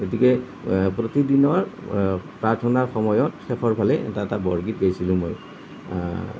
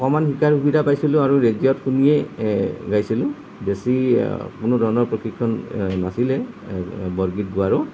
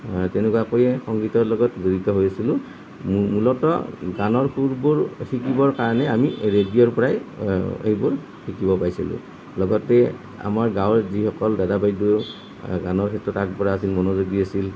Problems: none marked